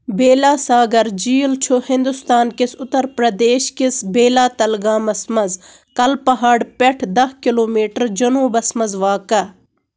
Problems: constant background noise